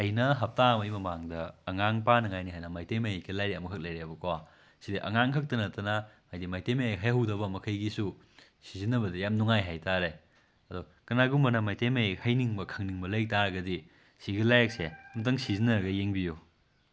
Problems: background sounds at intervals